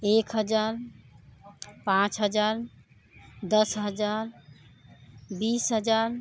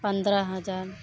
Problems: constant background noise